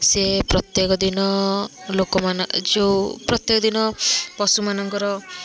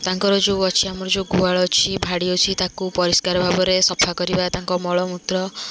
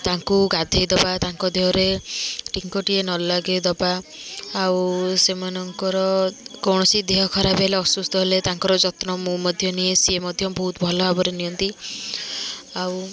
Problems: constant background noise, continuous background conversations